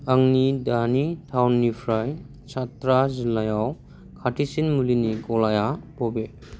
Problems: none marked